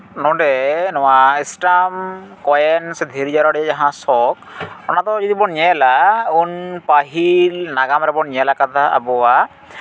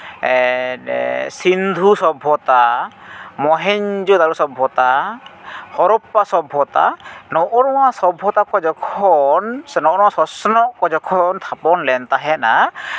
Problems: background sounds at intervals